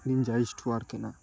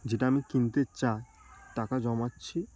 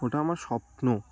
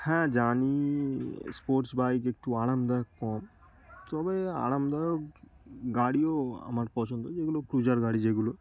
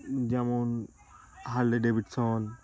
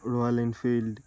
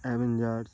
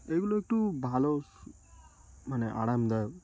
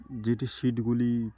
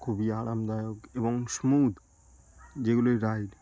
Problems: background sounds at intervals, continuous background conversations